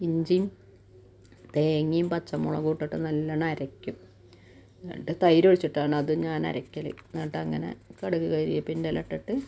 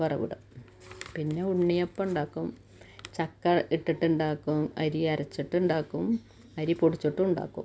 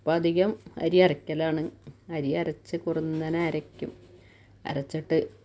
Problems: none marked